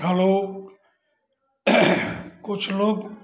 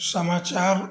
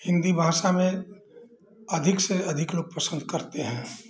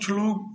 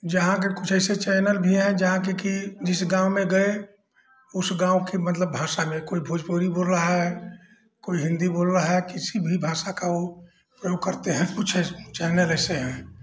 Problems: background sounds at intervals